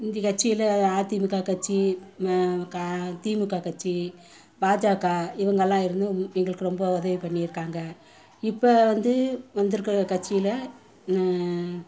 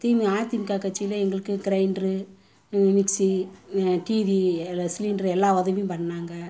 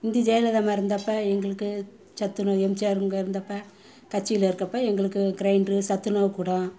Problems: constant background noise, continuous background conversations